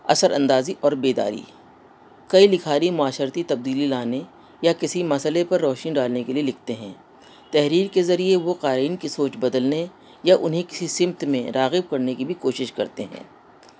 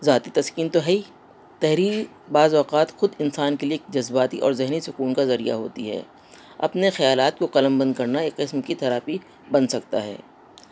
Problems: constant background noise